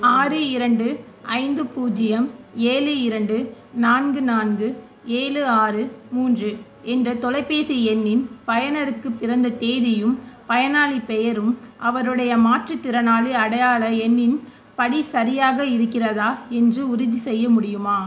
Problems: none marked